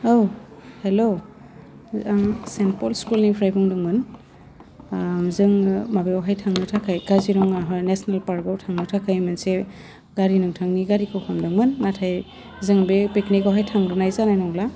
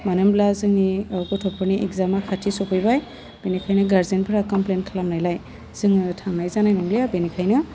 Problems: none marked